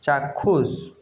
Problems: echo